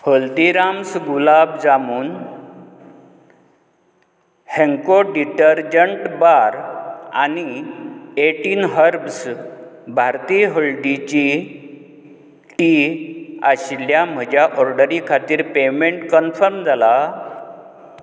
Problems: constant background noise